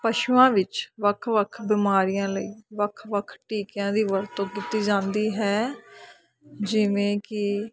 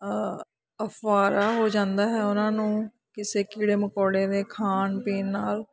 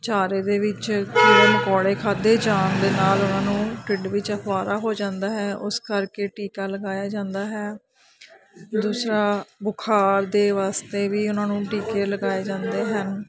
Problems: continuous background conversations